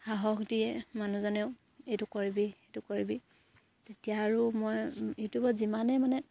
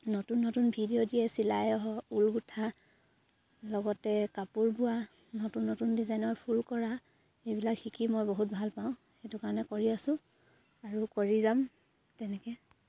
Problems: none marked